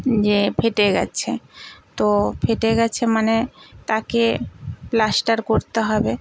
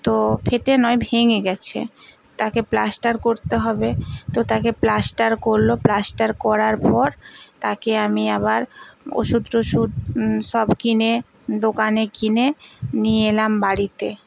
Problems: constant background noise